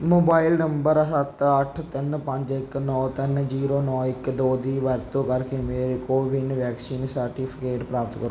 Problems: none marked